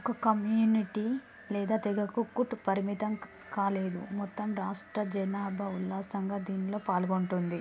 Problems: constant background noise, low volume